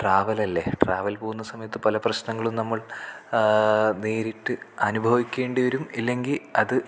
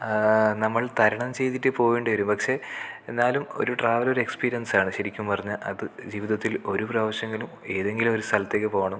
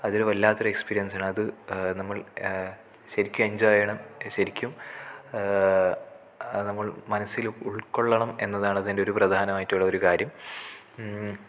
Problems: none marked